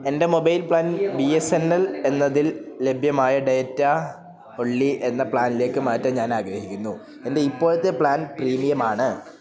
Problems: none marked